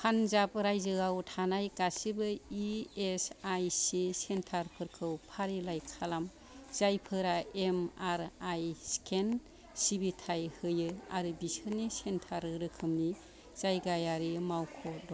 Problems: none marked